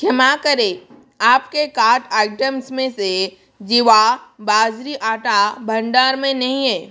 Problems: background sounds at intervals